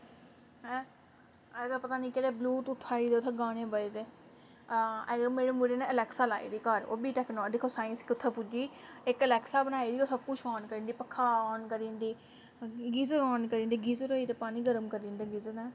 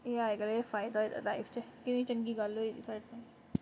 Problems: constant background noise